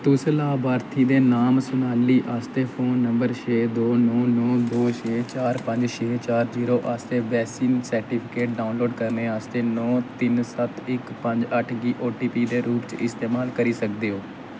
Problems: constant background noise